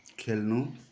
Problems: background sounds at intervals